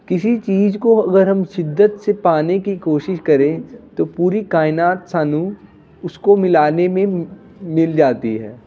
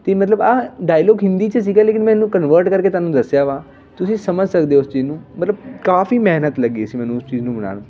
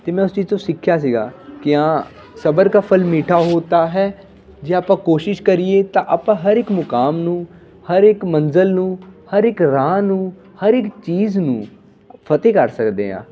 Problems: constant background noise, continuous background conversations